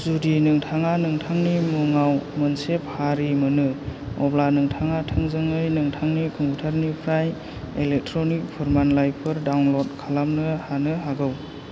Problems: constant background noise